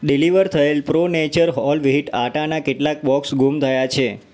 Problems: background sounds at intervals